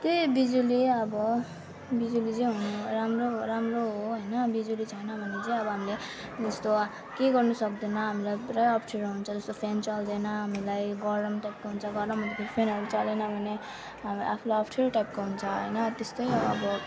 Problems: continuous background conversations